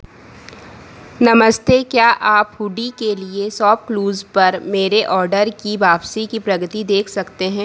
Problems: constant background noise